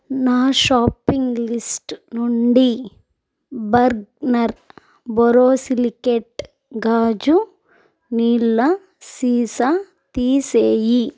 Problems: background sounds at intervals, background conversations at intervals